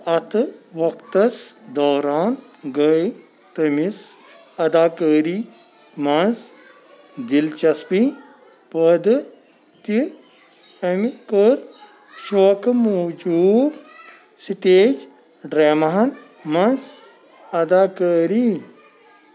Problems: constant background noise